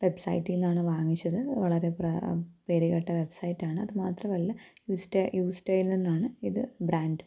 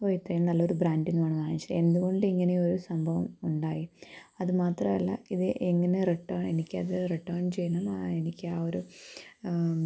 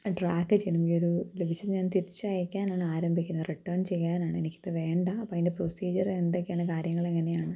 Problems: low volume